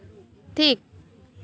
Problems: constant background noise